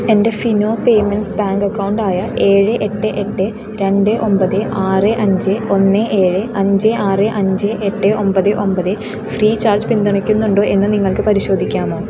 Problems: constant background noise